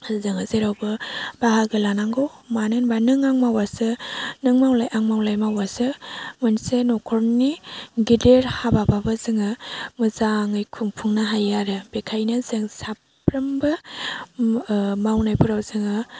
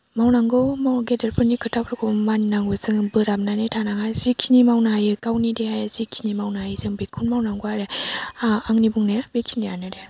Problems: low volume